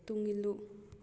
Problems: low volume